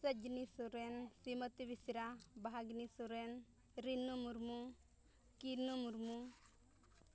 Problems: none marked